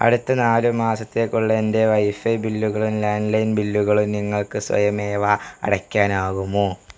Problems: background sounds at intervals